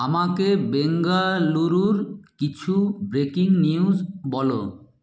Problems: none marked